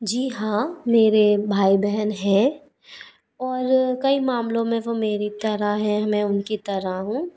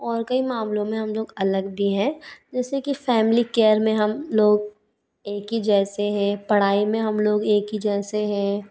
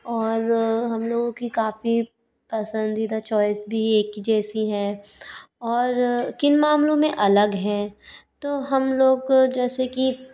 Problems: background sounds at intervals